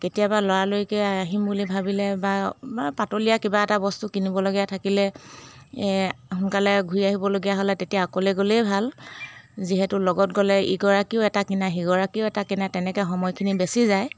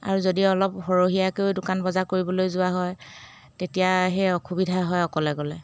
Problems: background sounds at intervals